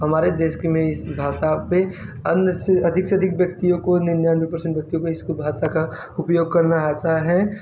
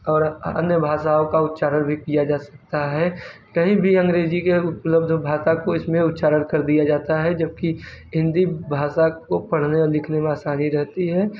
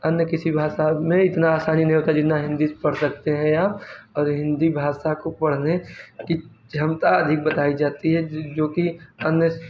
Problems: background sounds at intervals